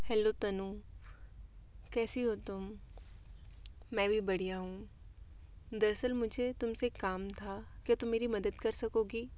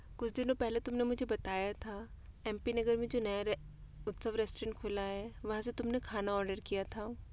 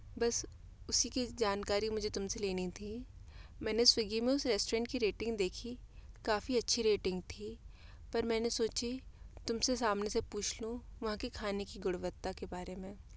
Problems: constant background noise